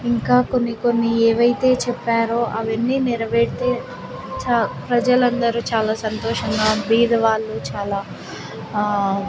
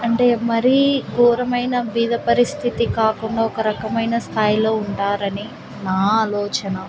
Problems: constant background noise